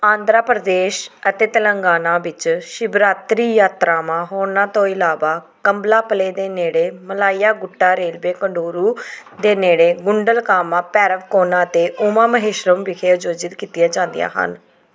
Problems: background sounds at intervals, background conversations at intervals